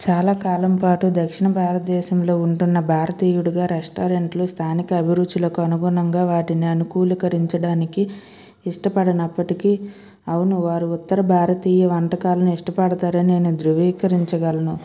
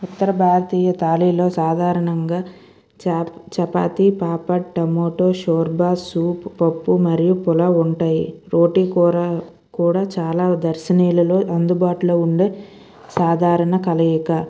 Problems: background sounds at intervals